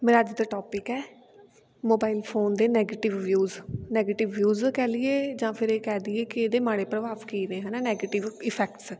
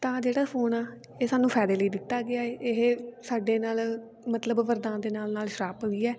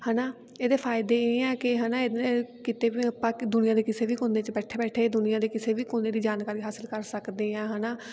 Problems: background sounds at intervals, continuous background conversations